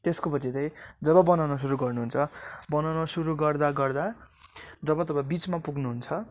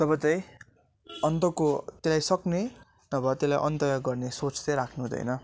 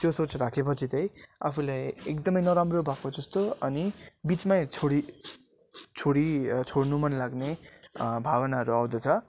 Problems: none marked